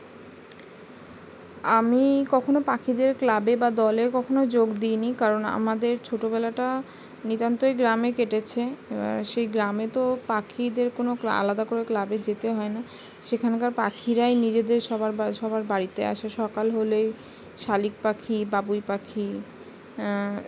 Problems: none marked